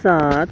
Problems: background sounds at intervals